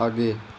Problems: none marked